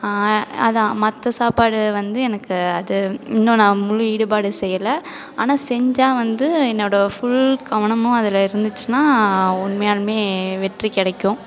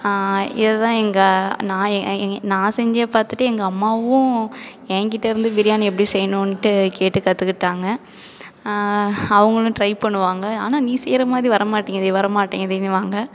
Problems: none marked